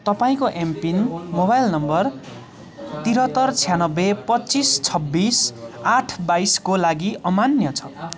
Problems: constant background noise